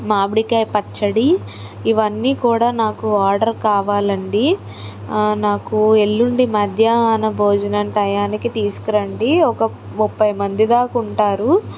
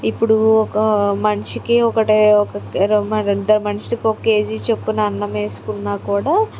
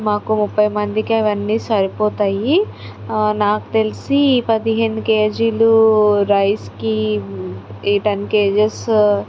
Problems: none marked